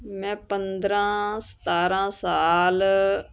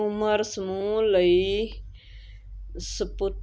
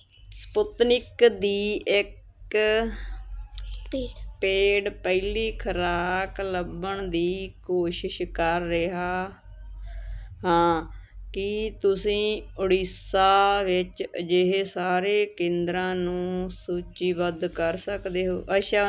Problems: continuous background conversations